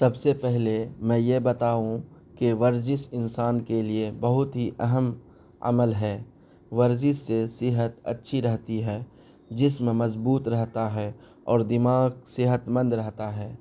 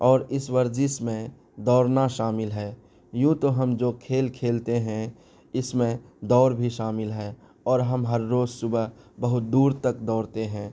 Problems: none marked